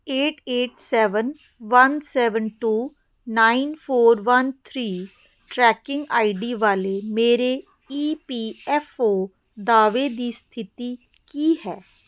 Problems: none marked